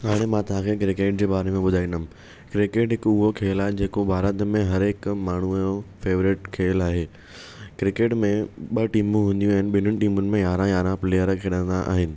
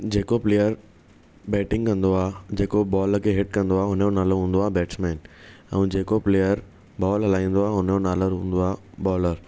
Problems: none marked